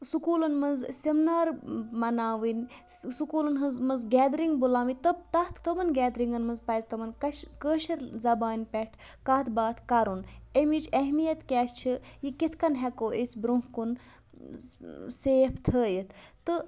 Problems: background sounds at intervals